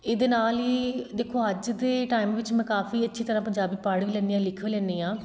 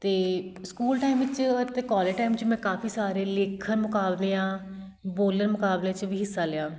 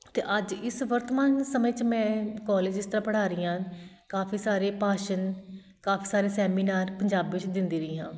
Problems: background sounds at intervals